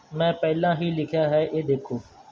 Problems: background sounds at intervals